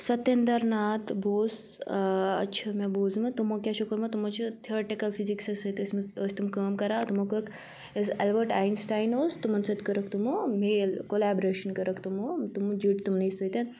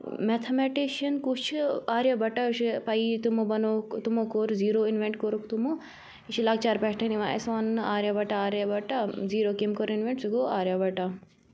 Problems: none marked